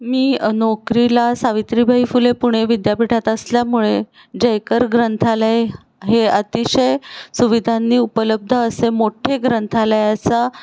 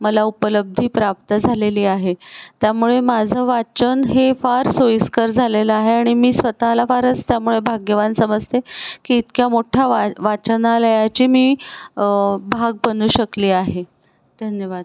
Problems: background sounds at intervals